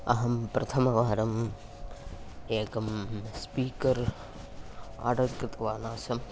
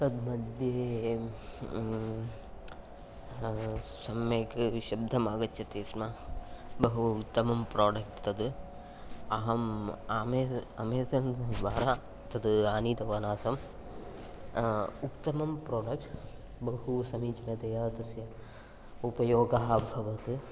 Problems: none marked